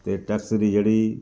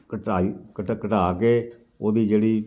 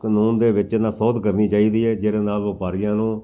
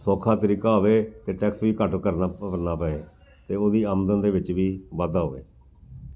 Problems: background sounds at intervals